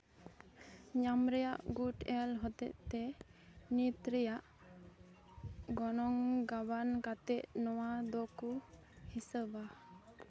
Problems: none marked